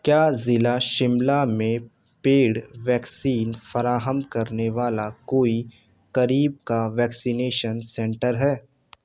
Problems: none marked